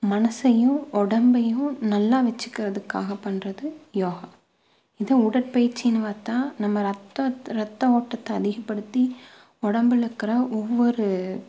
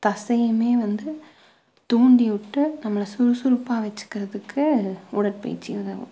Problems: low volume